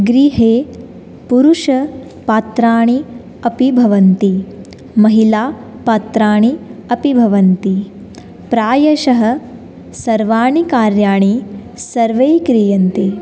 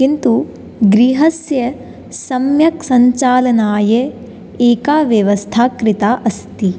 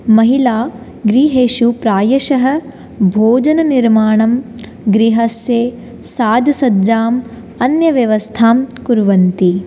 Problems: none marked